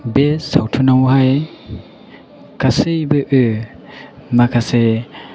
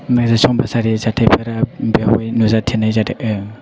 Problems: none marked